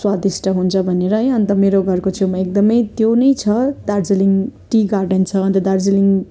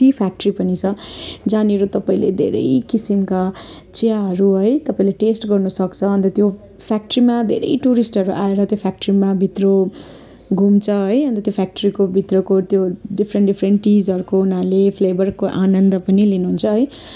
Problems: constant background noise, continuous background conversations